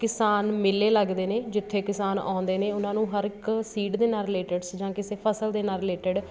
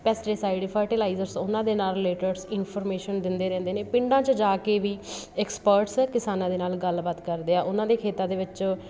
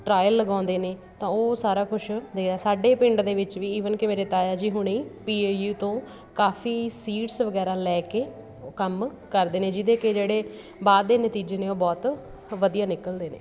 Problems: none marked